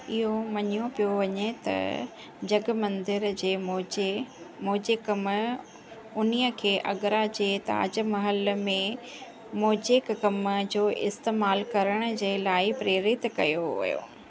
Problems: constant background noise